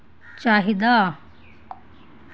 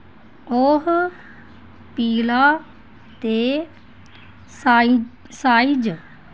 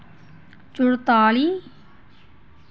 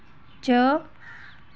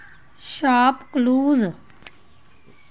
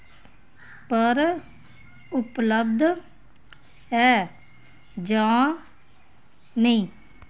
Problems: none marked